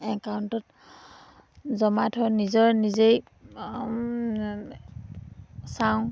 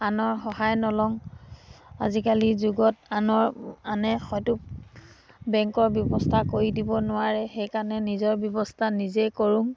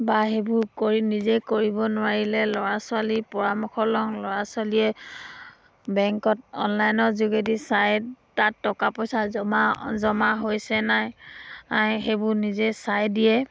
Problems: background sounds at intervals